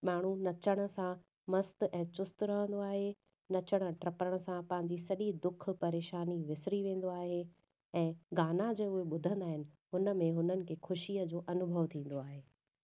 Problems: none marked